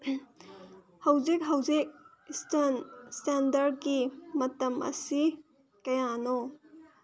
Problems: none marked